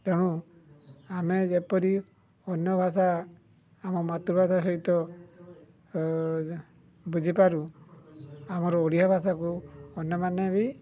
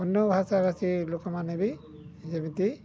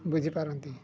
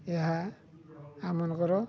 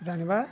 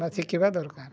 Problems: low volume